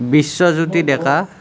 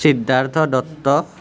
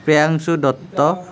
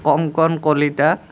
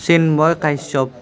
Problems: constant background noise